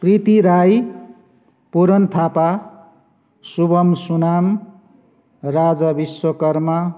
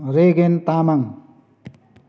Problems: none marked